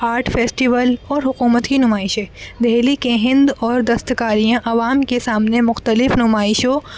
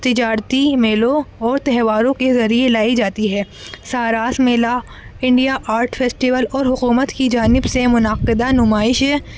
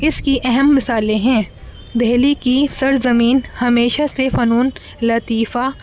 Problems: constant background noise